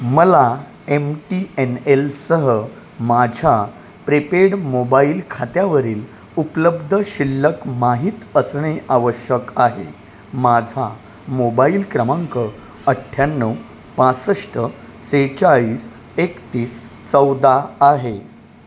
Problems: none marked